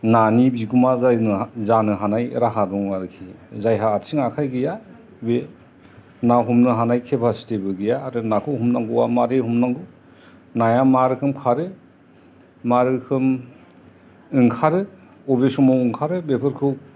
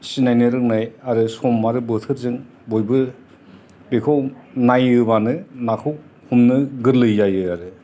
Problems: background sounds at intervals, background conversations at intervals